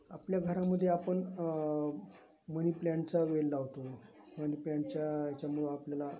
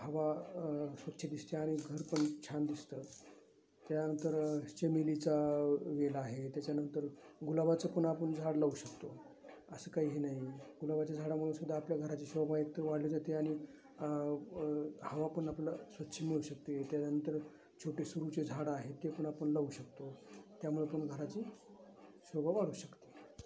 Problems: none marked